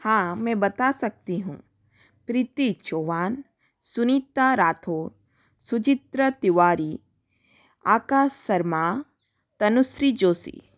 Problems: none marked